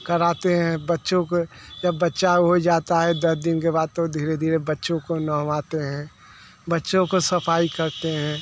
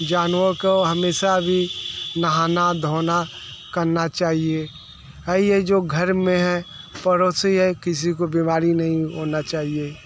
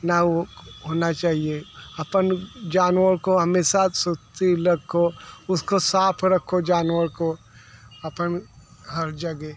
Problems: constant background noise, background conversations at intervals